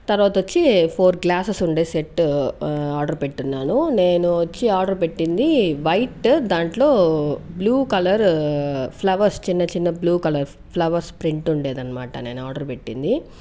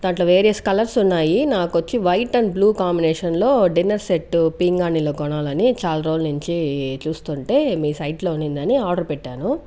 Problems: none marked